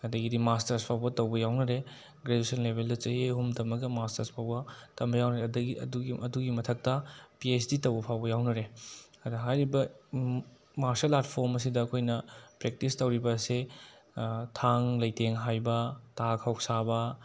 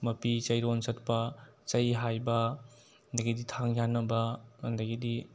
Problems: none marked